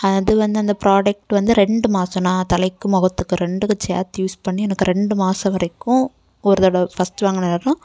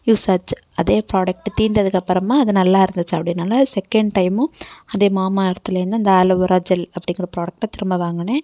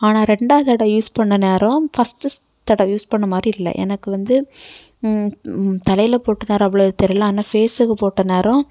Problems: background conversations at intervals